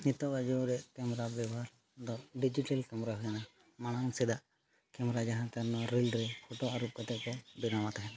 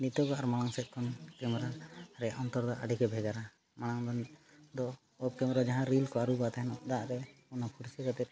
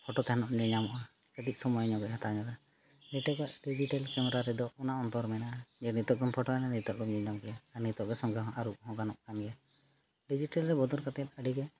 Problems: background sounds at intervals